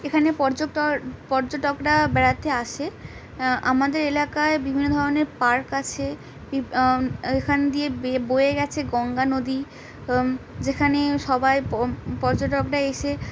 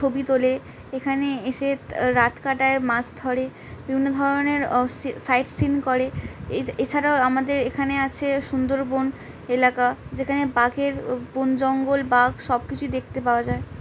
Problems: none marked